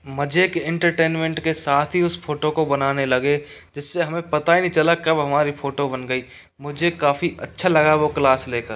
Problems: background sounds at intervals